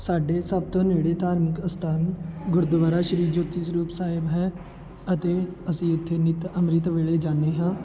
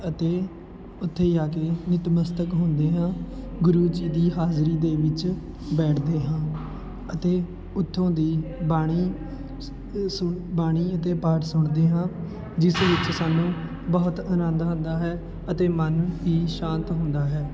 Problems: constant background noise, continuous background conversations